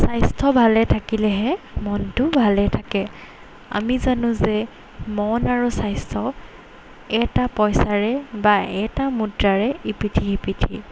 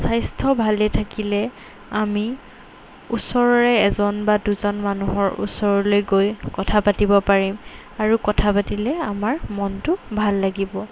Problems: background sounds at intervals